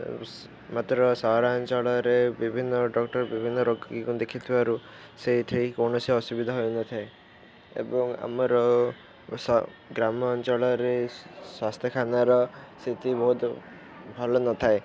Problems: none marked